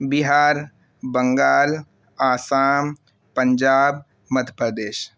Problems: constant background noise